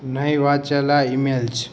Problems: constant background noise, background conversations at intervals